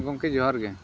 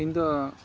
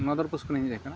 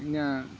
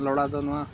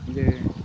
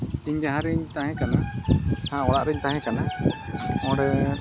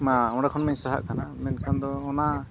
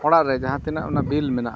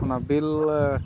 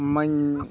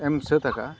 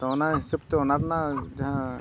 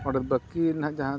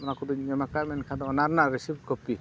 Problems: constant background noise, low volume